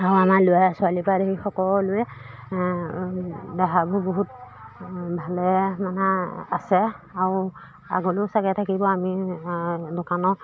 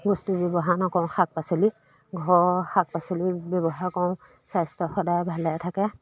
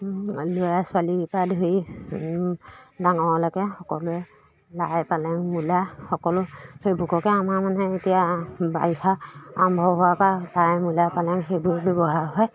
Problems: constant background noise, background conversations at intervals